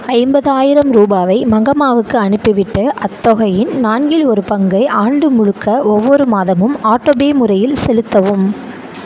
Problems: none marked